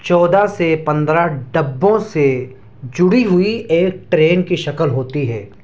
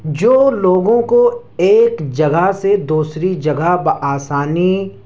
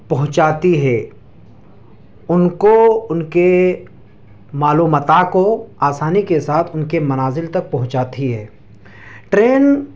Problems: none marked